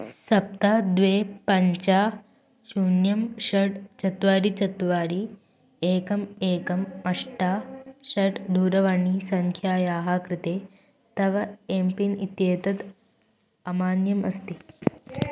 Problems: constant background noise